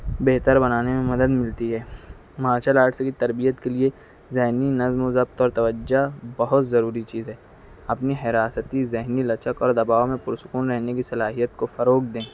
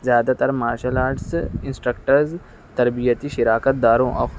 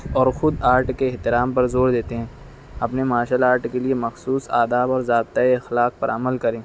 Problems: background sounds at intervals